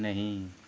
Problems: constant background noise